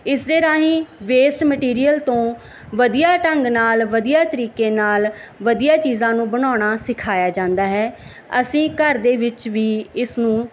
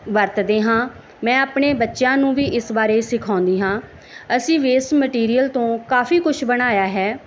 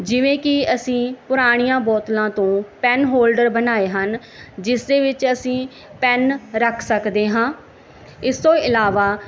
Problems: background sounds at intervals